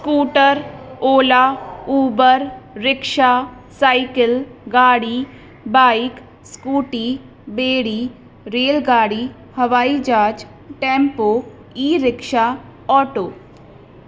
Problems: constant background noise